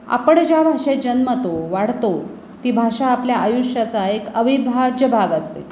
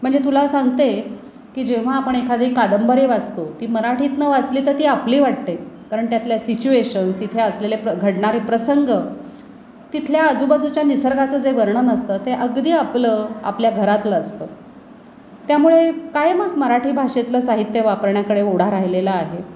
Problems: none marked